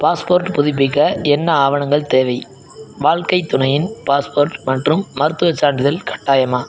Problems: background sounds at intervals